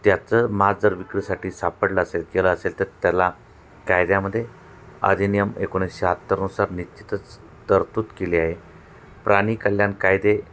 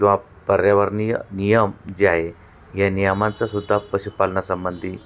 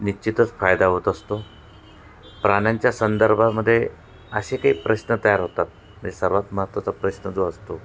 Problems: none marked